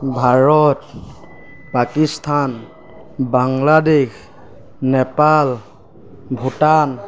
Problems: background sounds at intervals